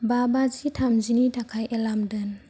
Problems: low volume